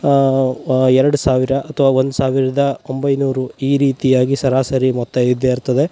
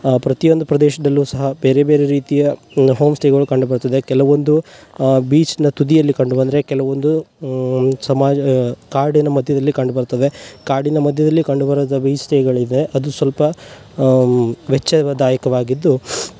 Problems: background sounds at intervals